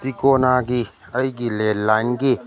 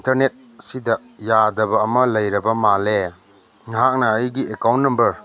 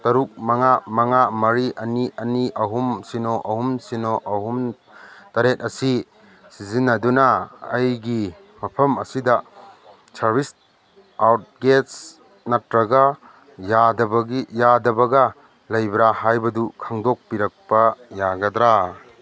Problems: background sounds at intervals